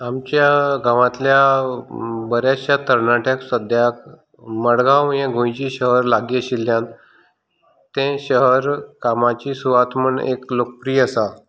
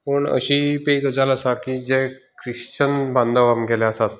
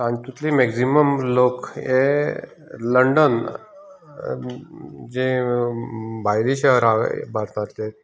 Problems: none marked